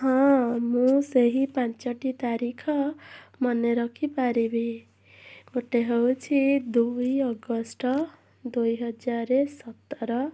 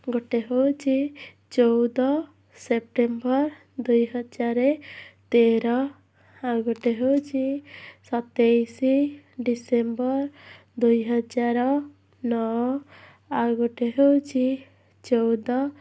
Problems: background sounds at intervals